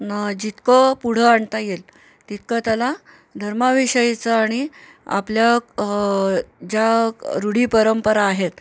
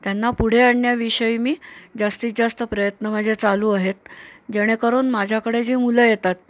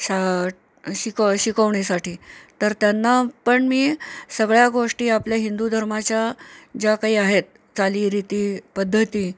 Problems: none marked